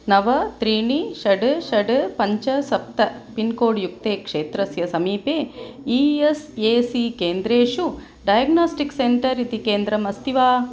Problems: none marked